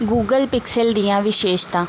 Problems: constant background noise